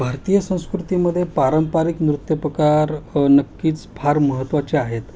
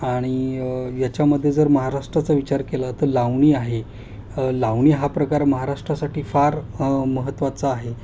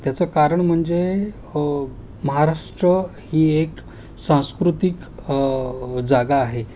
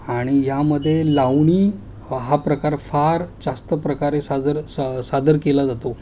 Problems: constant background noise